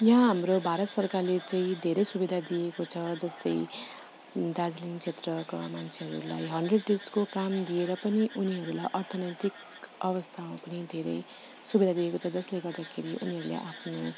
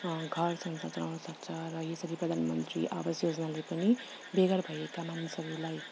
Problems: background sounds at intervals